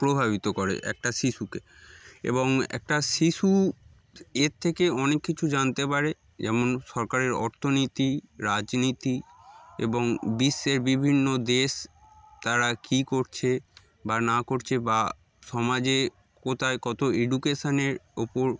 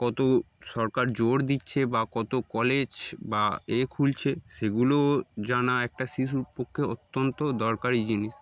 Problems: background sounds at intervals, background conversations at intervals